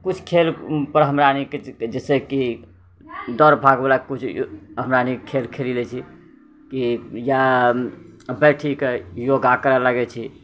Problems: none marked